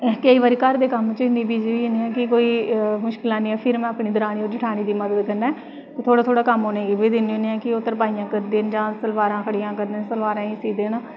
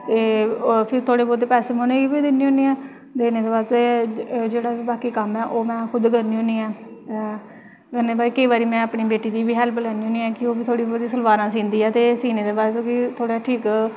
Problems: constant background noise